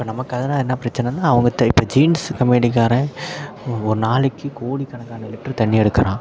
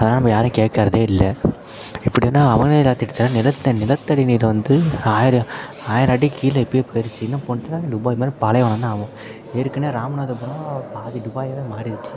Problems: constant background noise, background conversations at intervals, low volume